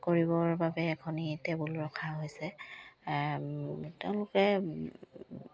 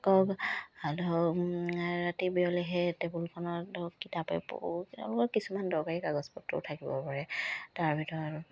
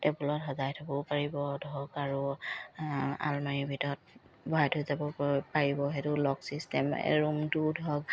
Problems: none marked